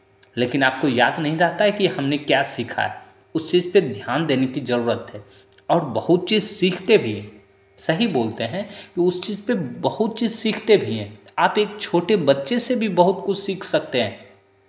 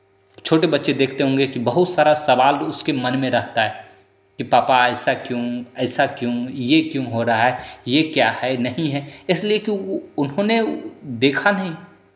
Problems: constant background noise, echo